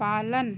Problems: none marked